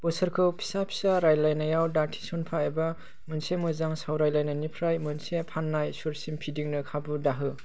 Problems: constant background noise